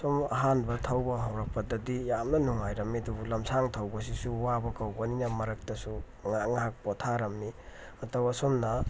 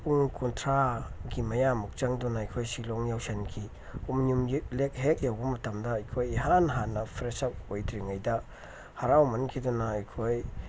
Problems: background sounds at intervals